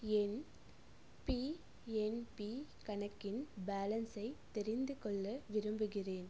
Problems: low volume